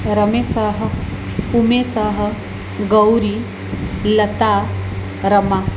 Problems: none marked